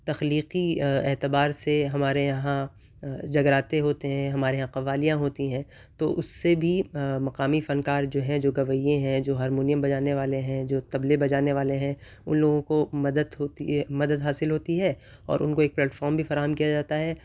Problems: none marked